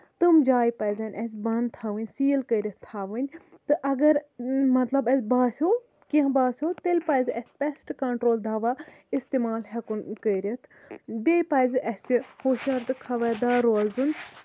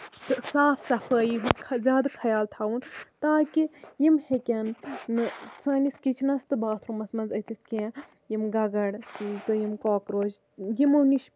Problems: none marked